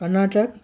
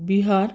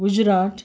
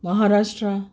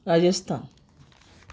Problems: constant background noise